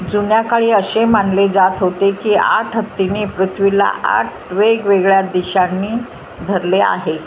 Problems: constant background noise